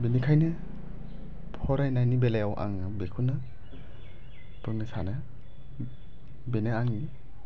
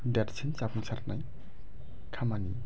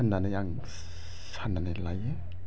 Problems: low volume